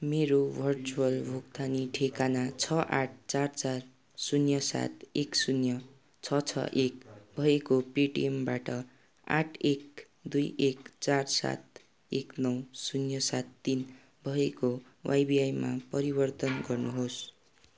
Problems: none marked